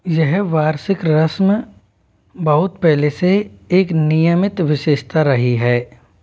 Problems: background sounds at intervals